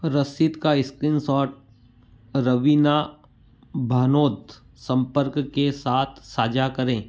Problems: background sounds at intervals